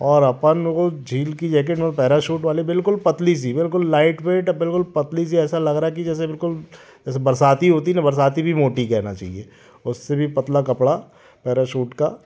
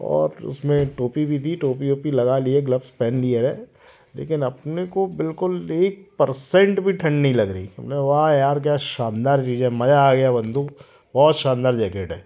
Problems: constant background noise